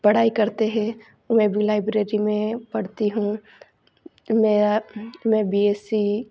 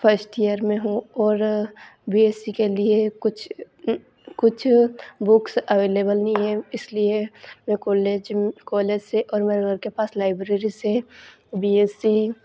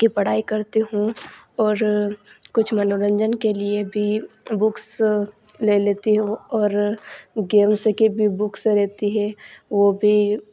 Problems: none marked